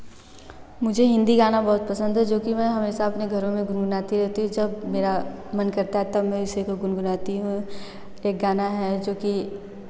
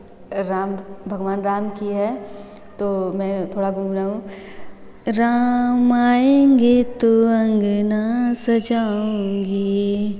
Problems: none marked